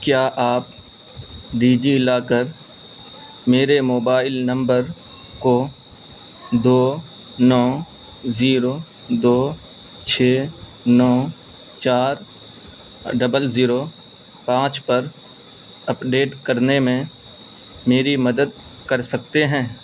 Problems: constant background noise